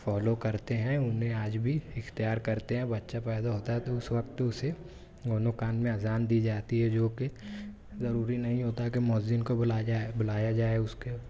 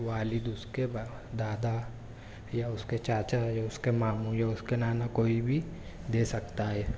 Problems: constant background noise, continuous background conversations